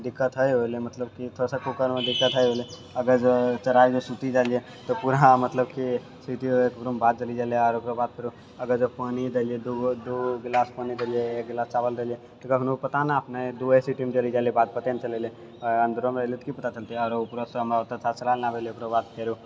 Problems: none marked